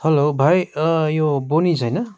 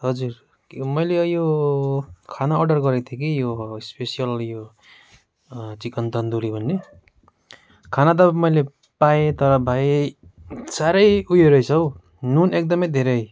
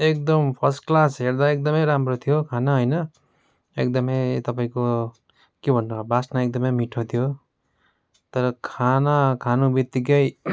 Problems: background sounds at intervals